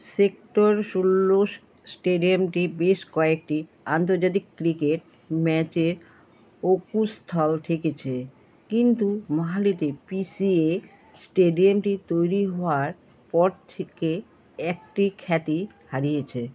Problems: none marked